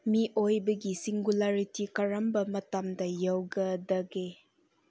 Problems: none marked